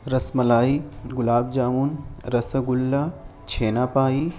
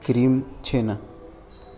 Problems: constant background noise